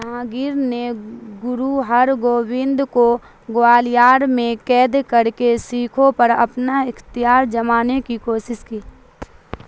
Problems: constant background noise